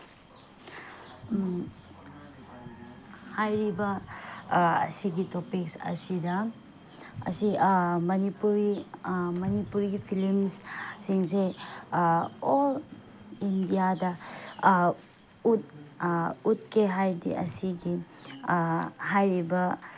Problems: background sounds at intervals